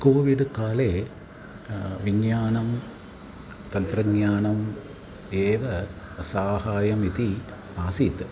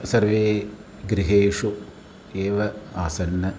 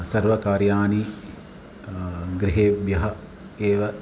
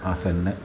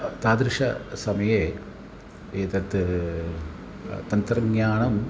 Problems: background sounds at intervals, continuous background conversations